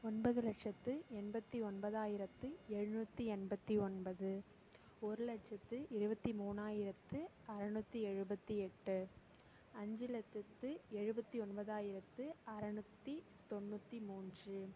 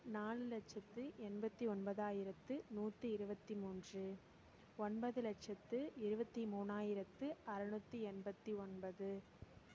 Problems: none marked